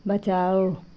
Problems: constant background noise